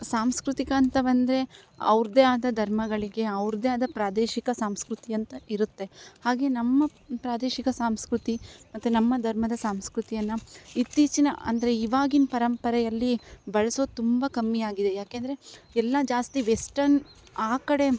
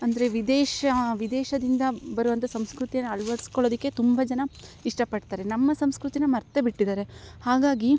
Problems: none marked